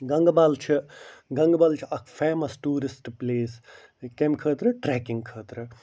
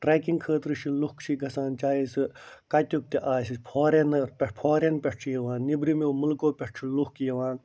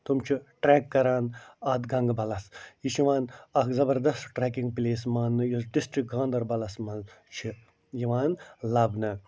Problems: none marked